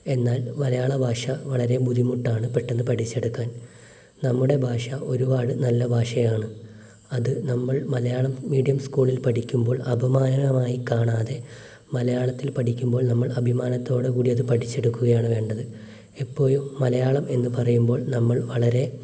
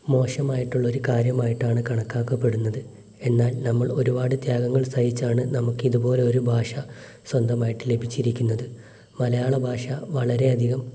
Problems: constant background noise